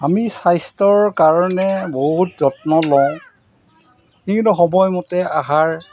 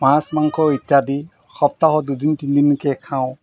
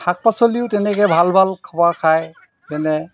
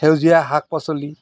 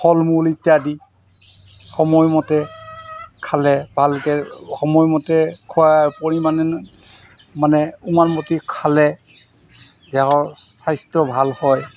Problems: constant background noise